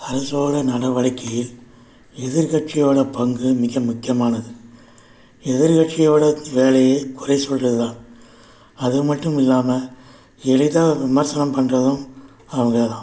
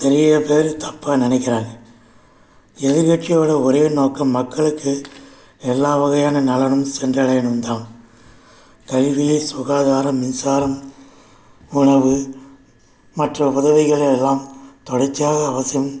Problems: background sounds at intervals